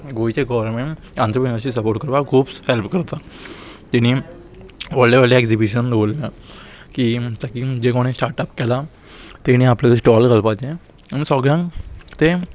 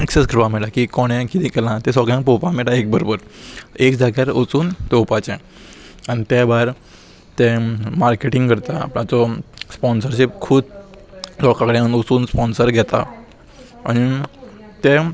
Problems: none marked